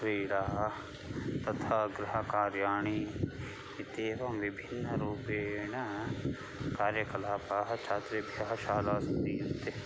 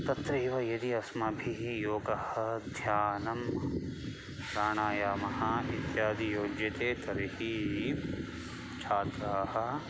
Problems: background sounds at intervals, background conversations at intervals